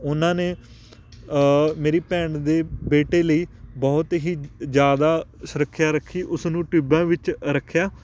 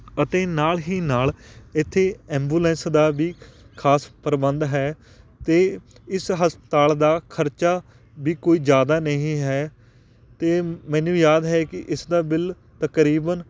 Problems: constant background noise